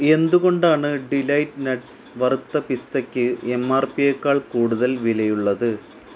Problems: constant background noise